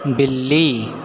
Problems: none marked